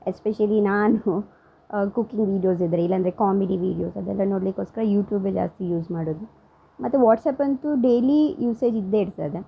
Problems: none marked